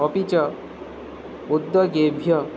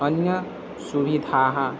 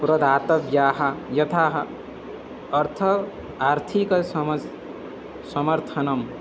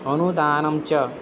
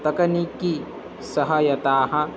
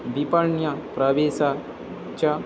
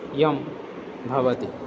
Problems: constant background noise, background conversations at intervals